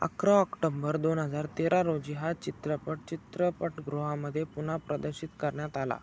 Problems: none marked